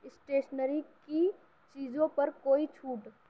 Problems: background sounds at intervals